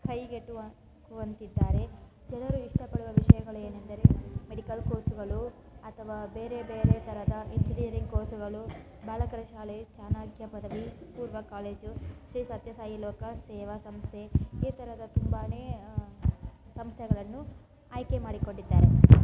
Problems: constant background noise